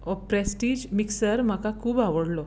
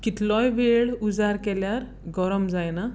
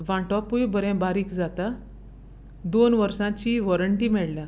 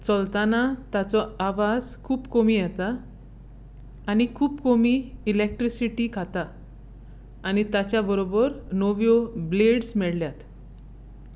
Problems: background sounds at intervals